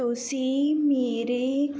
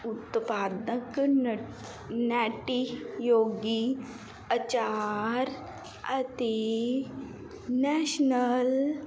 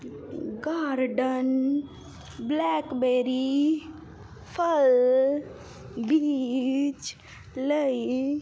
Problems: constant background noise